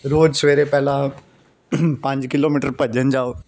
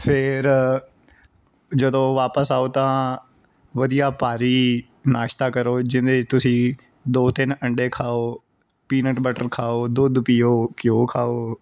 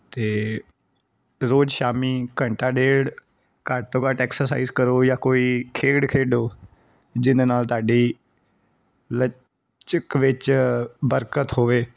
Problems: background sounds at intervals